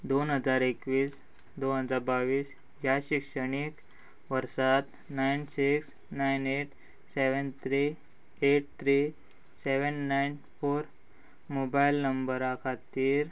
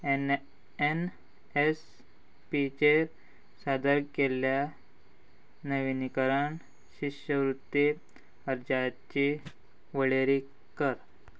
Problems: constant background noise